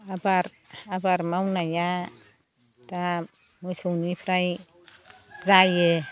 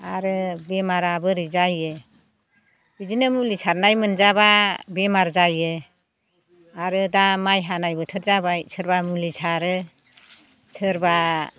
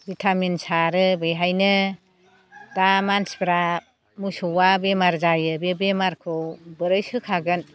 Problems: none marked